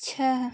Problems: background sounds at intervals